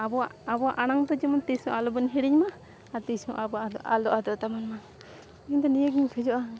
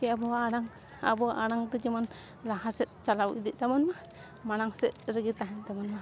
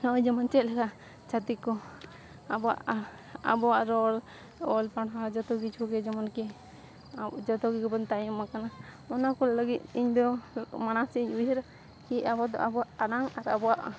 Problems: constant background noise